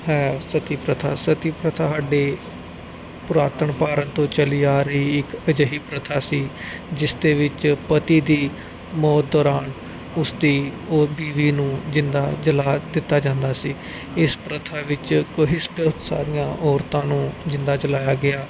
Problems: constant background noise